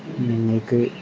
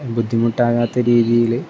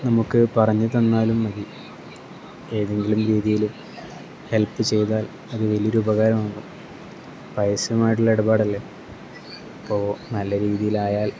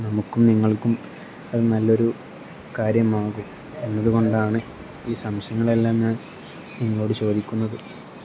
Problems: none marked